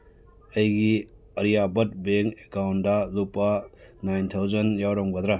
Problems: none marked